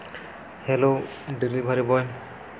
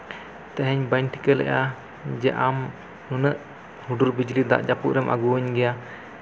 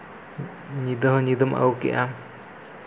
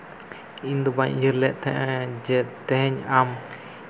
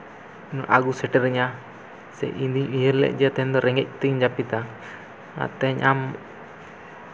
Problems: constant background noise